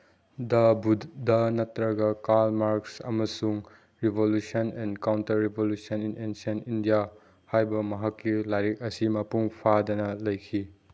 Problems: background sounds at intervals